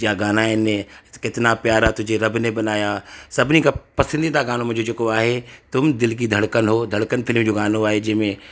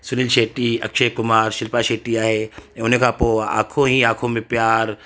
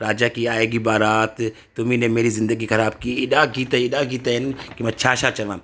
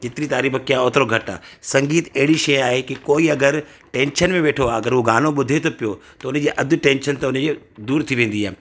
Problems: constant background noise, echo